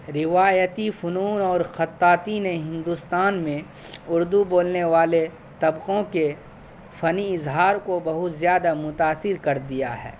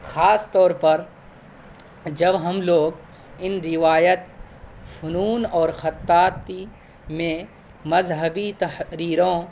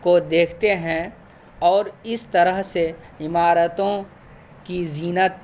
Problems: constant background noise